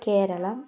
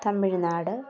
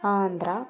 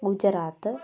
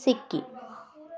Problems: constant background noise